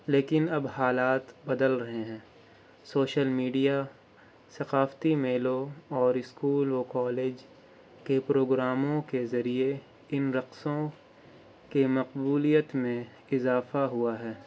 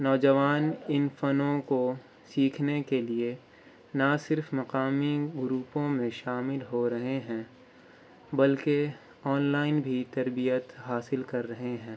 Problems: constant background noise